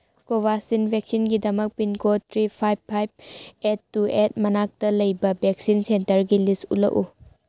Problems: none marked